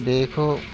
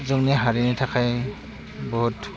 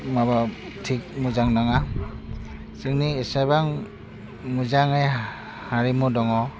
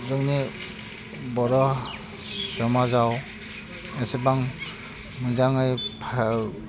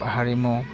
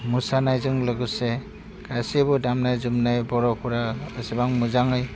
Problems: none marked